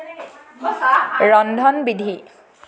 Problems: constant background noise